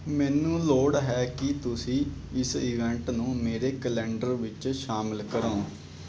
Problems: background sounds at intervals